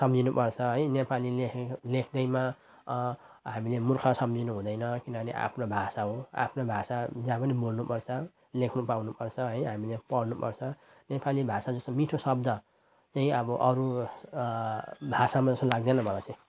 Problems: none marked